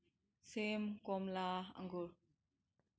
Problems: none marked